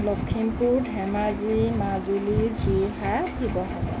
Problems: constant background noise